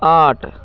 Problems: constant background noise, continuous background conversations